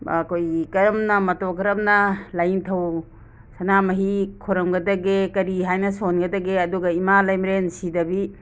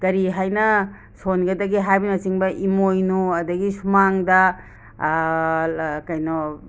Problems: background sounds at intervals